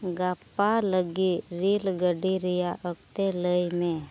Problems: low volume